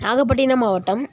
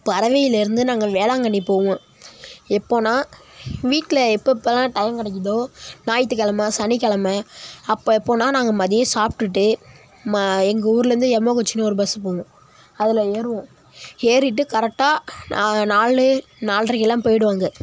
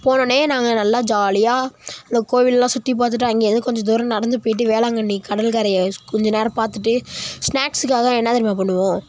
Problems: none marked